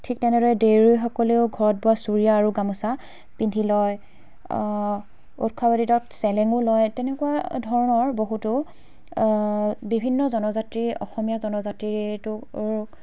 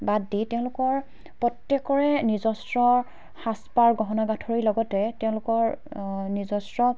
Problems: none marked